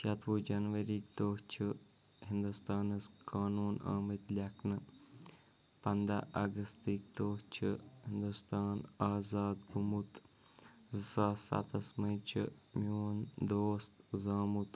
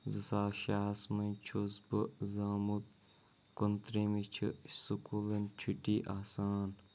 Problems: background sounds at intervals, low volume